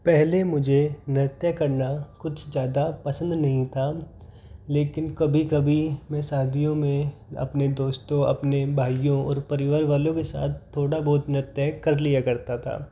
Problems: none marked